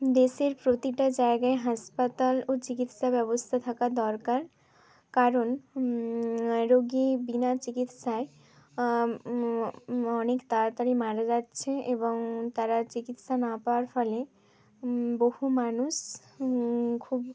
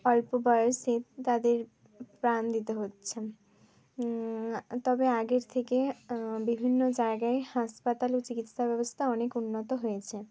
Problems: constant background noise, background conversations at intervals